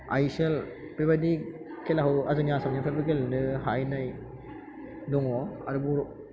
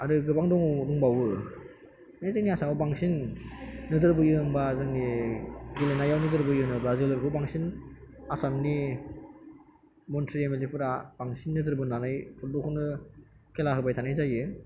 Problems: none marked